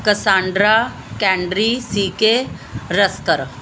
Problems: background sounds at intervals